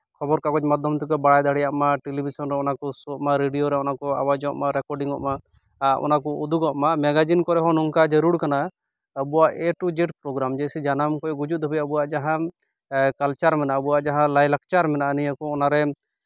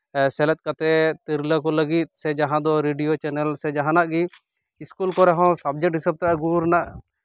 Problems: none marked